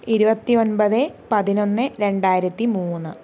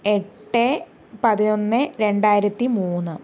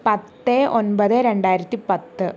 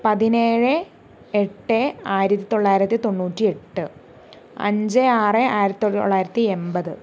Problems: none marked